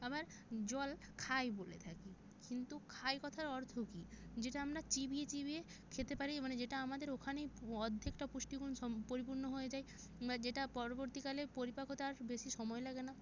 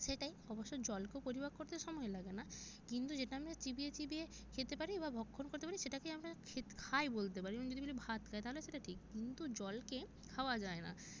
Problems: background sounds at intervals